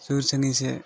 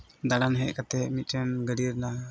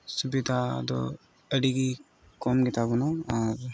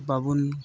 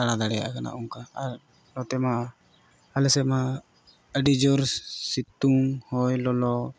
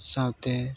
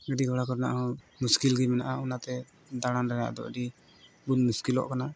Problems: none marked